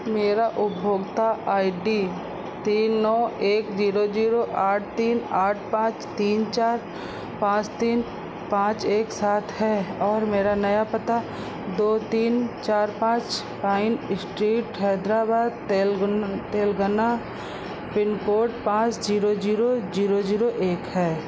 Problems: constant background noise